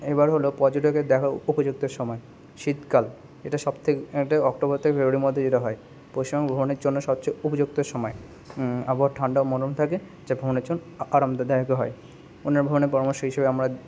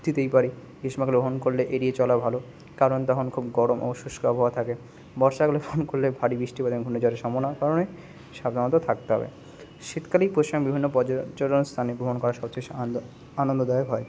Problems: constant background noise